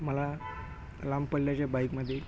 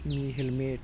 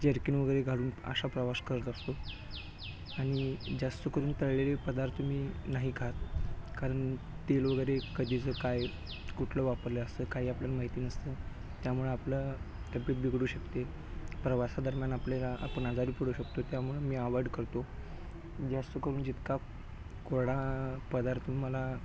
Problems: none marked